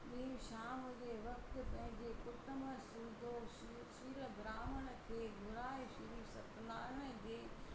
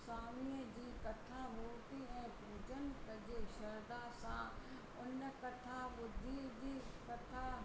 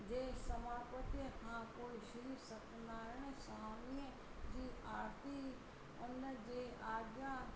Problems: constant background noise, low volume